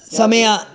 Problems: continuous background conversations